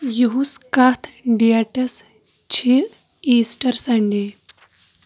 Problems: constant background noise